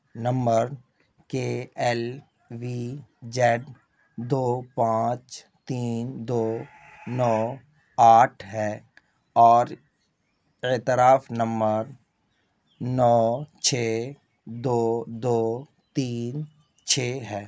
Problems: none marked